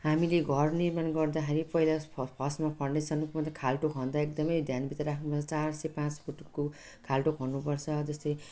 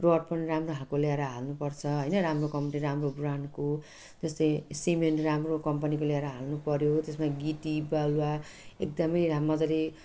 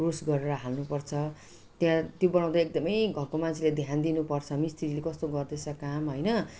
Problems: none marked